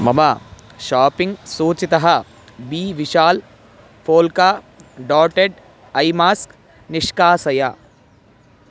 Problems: constant background noise